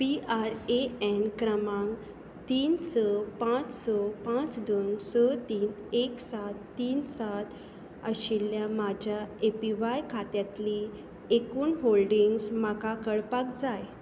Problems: background sounds at intervals